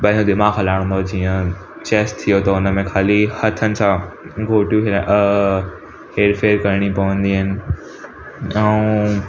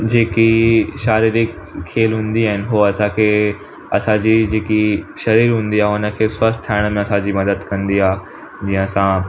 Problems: constant background noise